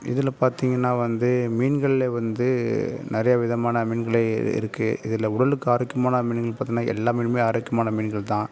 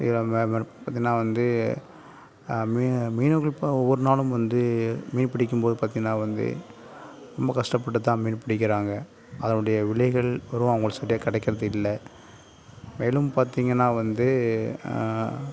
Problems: none marked